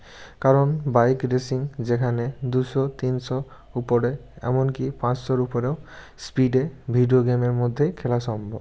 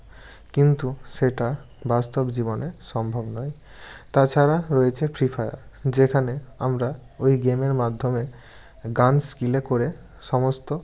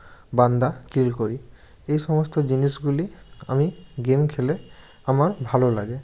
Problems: constant background noise